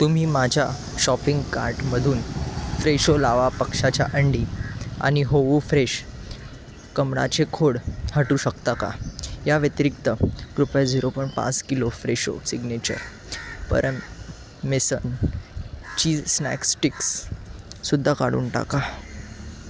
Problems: none marked